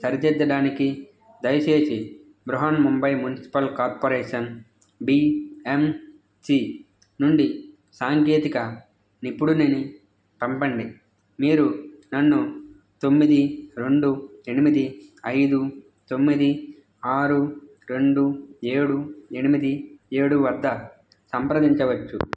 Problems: constant background noise, background conversations at intervals